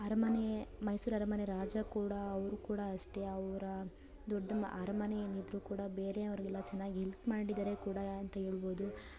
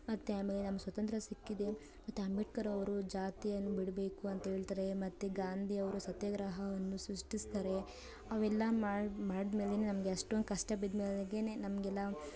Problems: background conversations at intervals